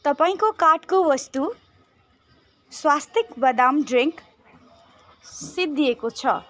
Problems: constant background noise